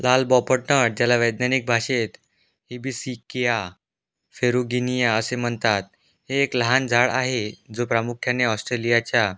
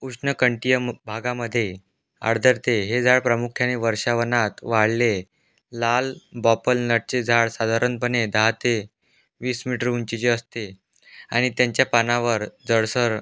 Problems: background sounds at intervals